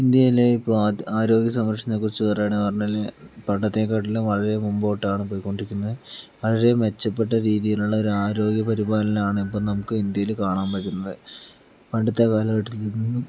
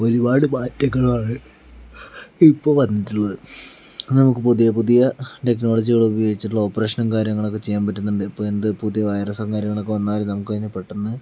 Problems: background sounds at intervals